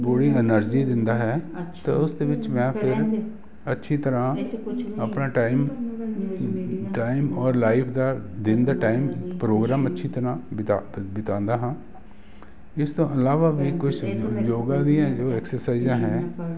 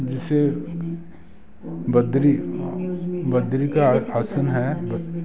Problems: none marked